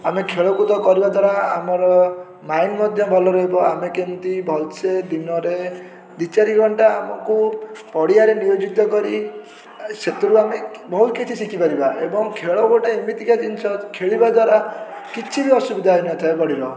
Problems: constant background noise